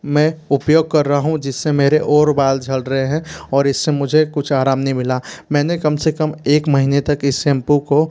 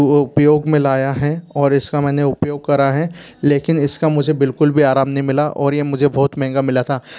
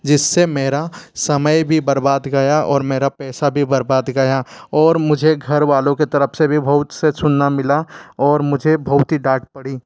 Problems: background sounds at intervals